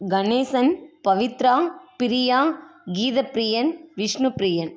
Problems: constant background noise